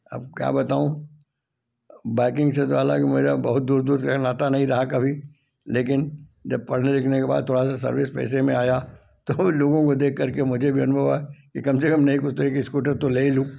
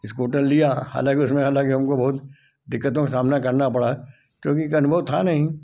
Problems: background sounds at intervals